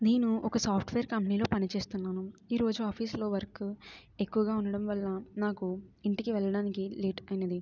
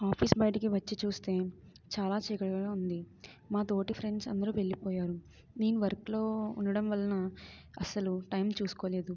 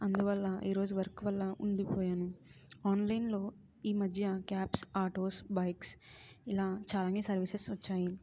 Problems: none marked